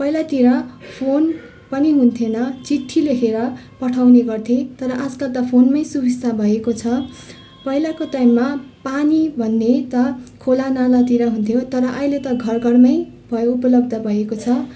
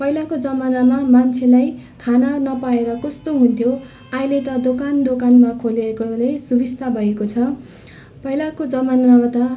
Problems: constant background noise, continuous background conversations